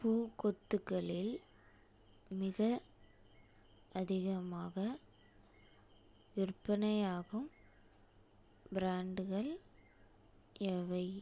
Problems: low volume